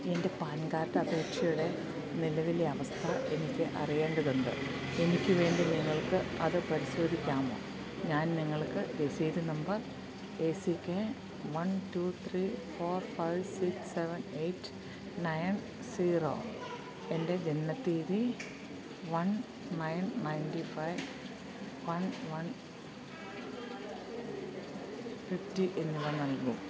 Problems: constant background noise